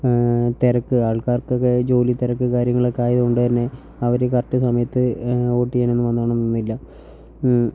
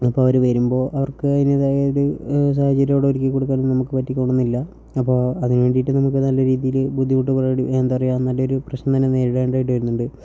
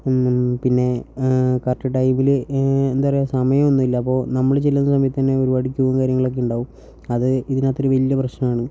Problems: low volume